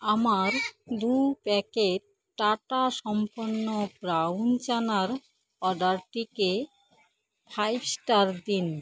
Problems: constant background noise